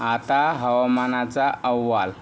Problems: none marked